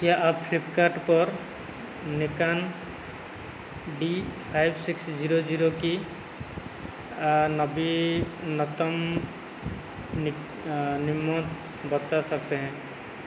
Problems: constant background noise